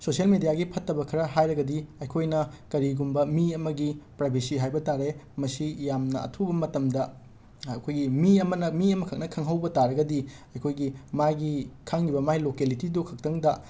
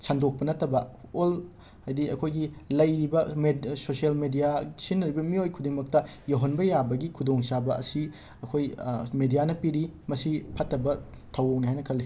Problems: constant background noise